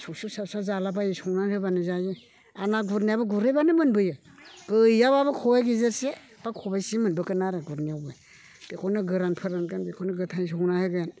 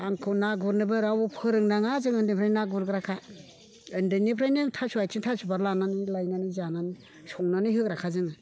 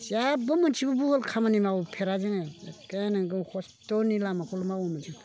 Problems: background conversations at intervals